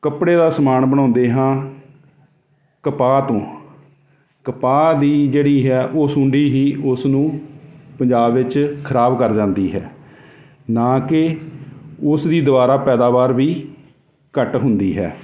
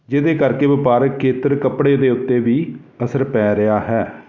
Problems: none marked